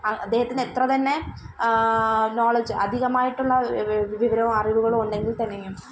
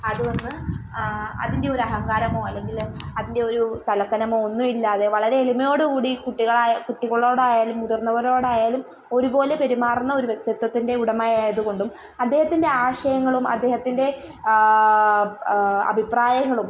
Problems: background sounds at intervals